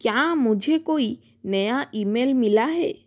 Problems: constant background noise